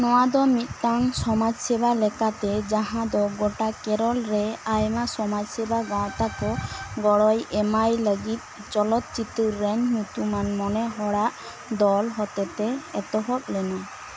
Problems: constant background noise